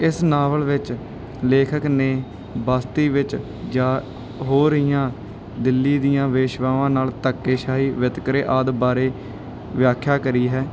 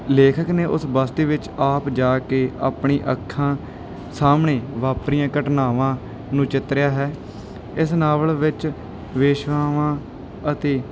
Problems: none marked